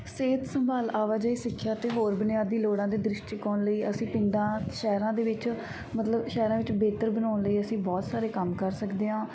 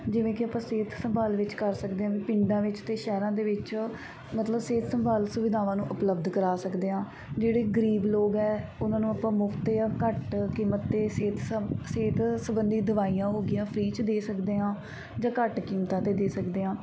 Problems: background sounds at intervals